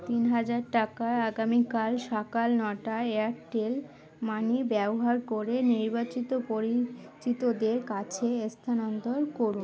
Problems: constant background noise, continuous background conversations